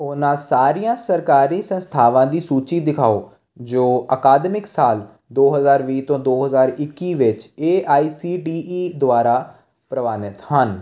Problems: constant background noise